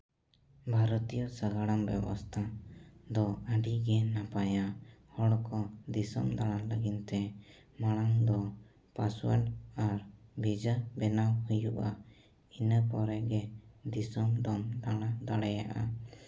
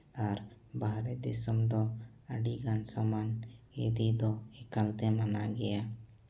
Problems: none marked